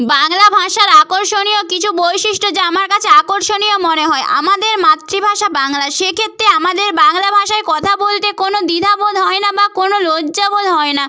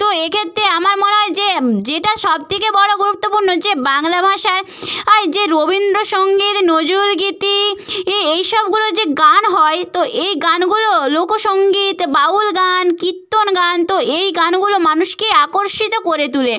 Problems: none marked